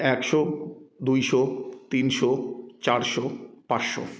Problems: background sounds at intervals